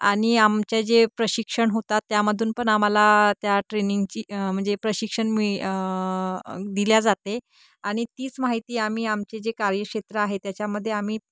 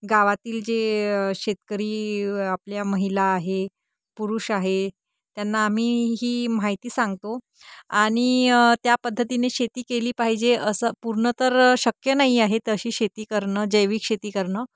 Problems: background sounds at intervals